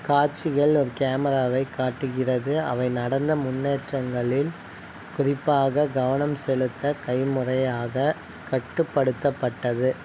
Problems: none marked